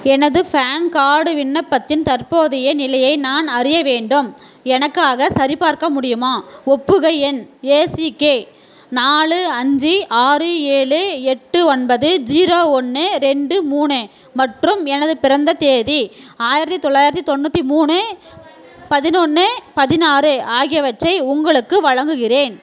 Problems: constant background noise, background conversations at intervals